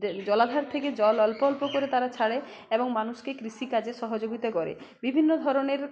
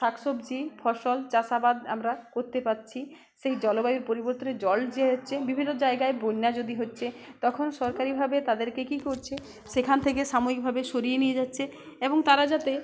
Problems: constant background noise, background conversations at intervals